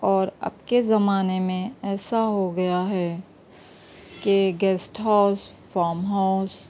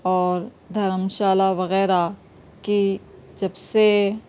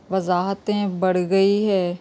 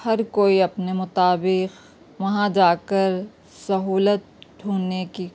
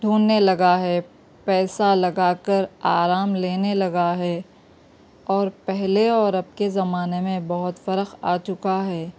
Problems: background sounds at intervals